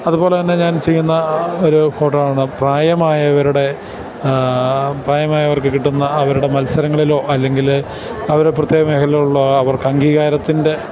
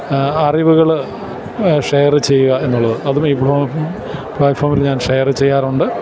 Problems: none marked